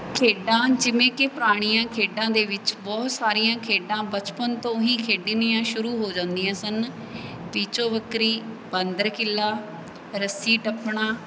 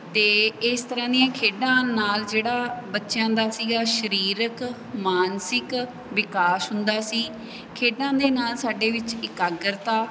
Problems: background sounds at intervals